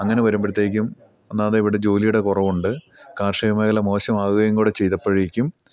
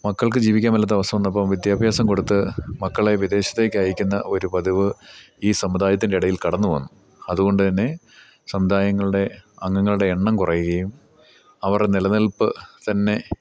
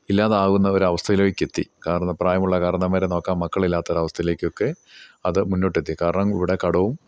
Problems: none marked